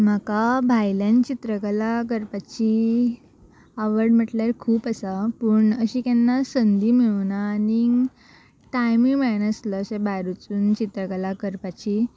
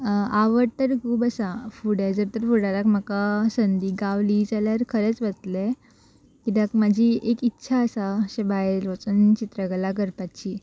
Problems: constant background noise